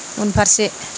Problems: constant background noise